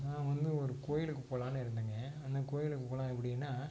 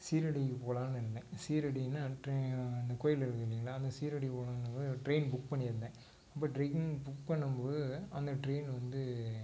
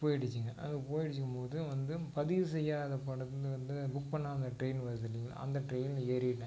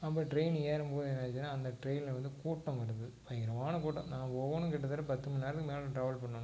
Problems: constant background noise